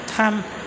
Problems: none marked